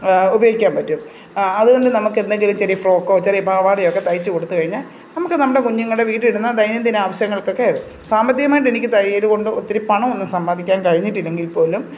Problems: constant background noise